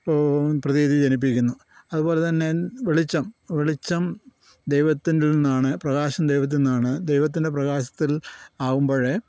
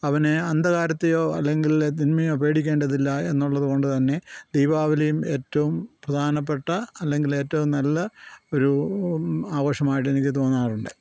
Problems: constant background noise